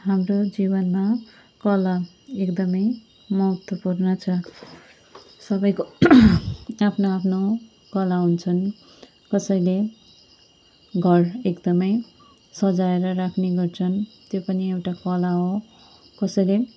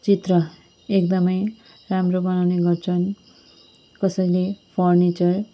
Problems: none marked